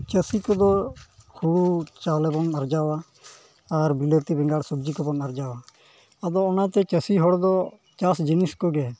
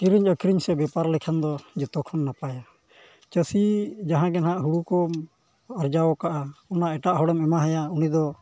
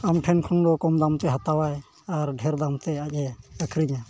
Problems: background sounds at intervals